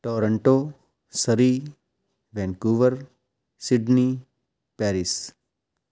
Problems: background sounds at intervals